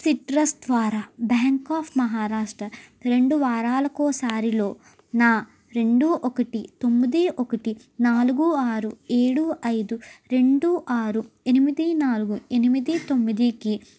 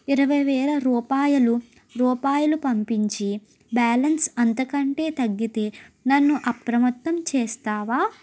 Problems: background sounds at intervals